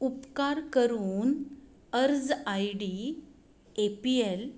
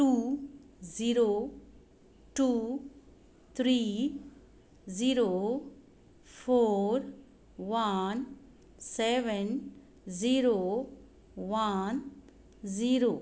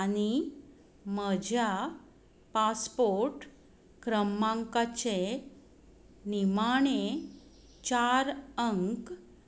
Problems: none marked